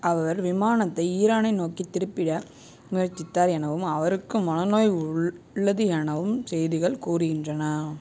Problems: constant background noise